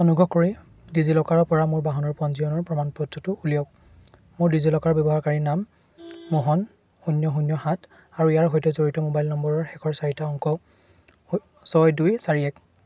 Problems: none marked